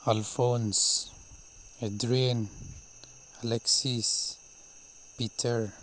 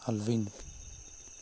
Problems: background sounds at intervals